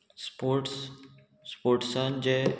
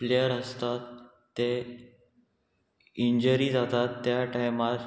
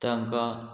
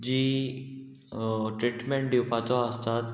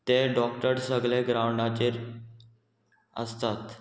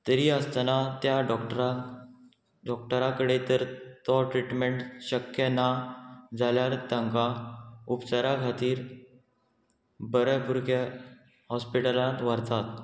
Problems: constant background noise